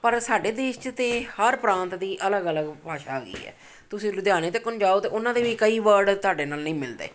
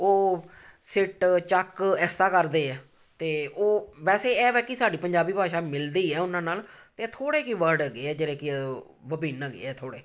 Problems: background sounds at intervals